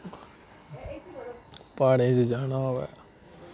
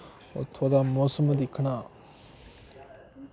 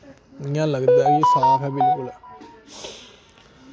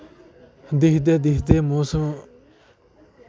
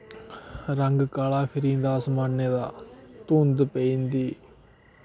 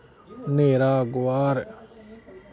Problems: none marked